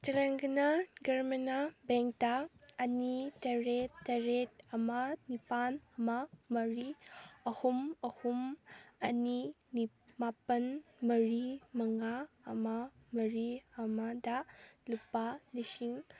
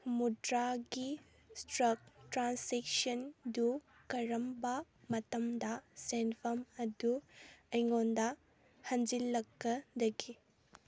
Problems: background conversations at intervals